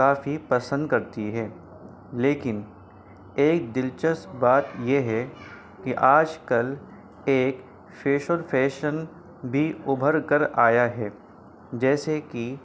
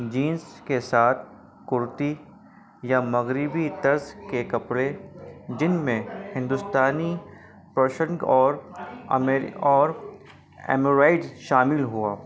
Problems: constant background noise